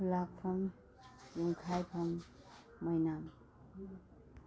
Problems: none marked